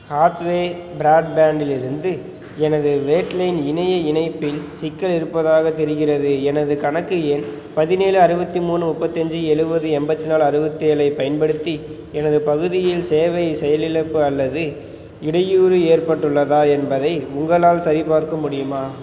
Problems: background sounds at intervals